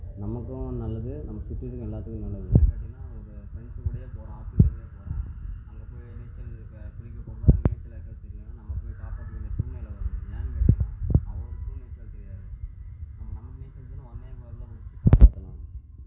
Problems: constant background noise, low volume